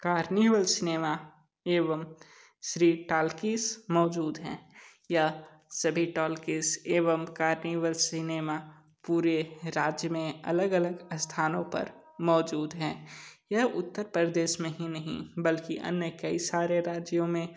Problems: none marked